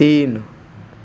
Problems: background sounds at intervals